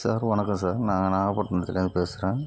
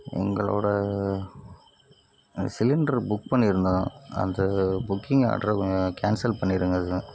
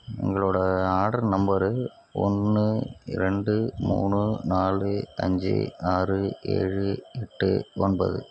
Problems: constant background noise